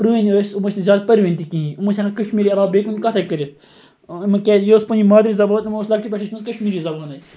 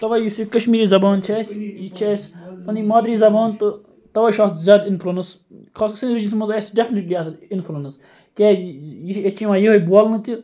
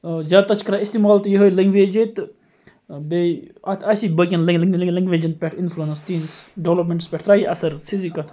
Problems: continuous background conversations